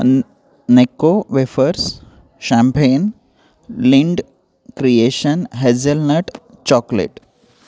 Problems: constant background noise